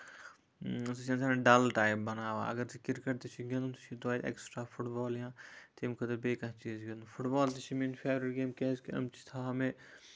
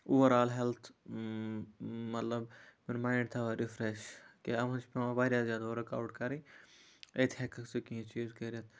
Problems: none marked